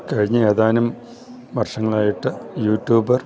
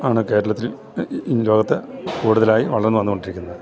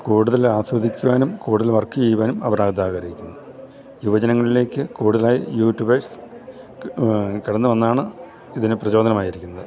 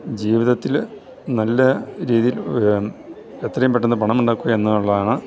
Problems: none marked